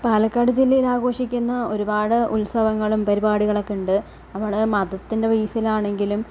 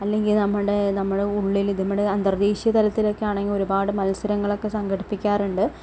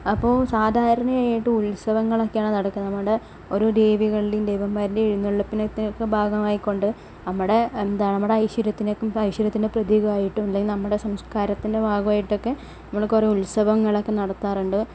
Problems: none marked